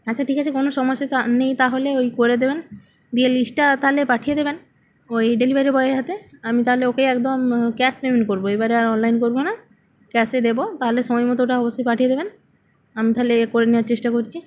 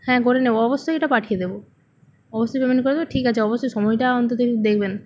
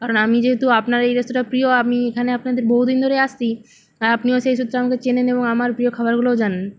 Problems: none marked